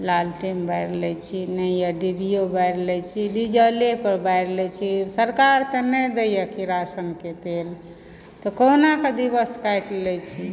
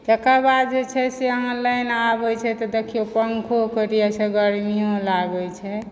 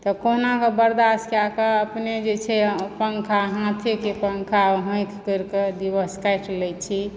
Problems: background sounds at intervals